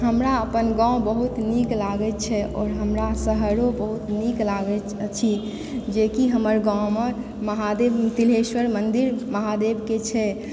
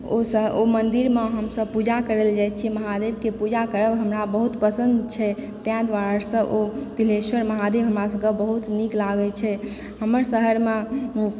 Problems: background sounds at intervals